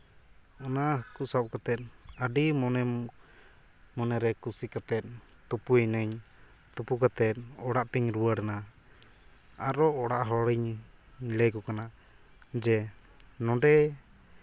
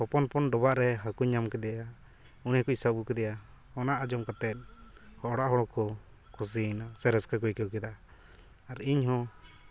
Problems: background sounds at intervals, background conversations at intervals